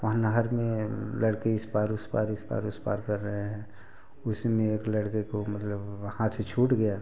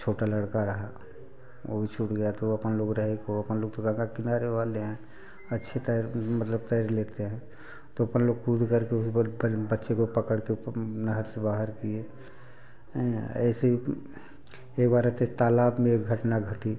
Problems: background sounds at intervals, continuous background conversations